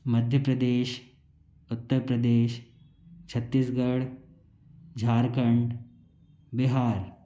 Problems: none marked